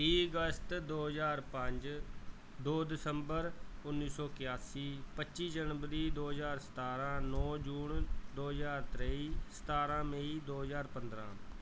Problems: none marked